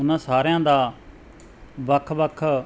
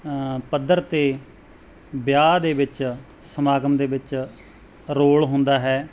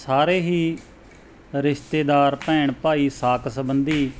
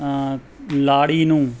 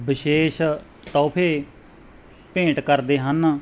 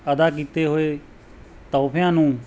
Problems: background sounds at intervals